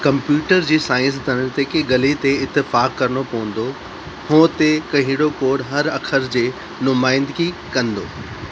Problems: constant background noise, echo